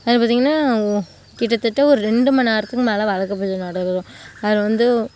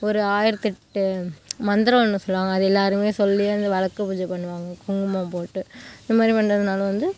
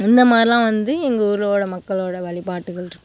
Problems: background sounds at intervals